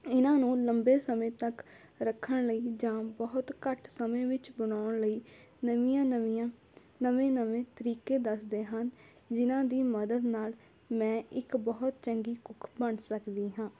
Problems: constant background noise